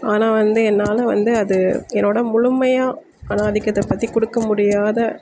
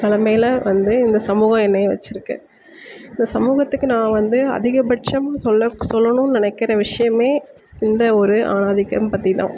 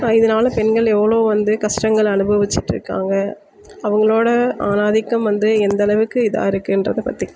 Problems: constant background noise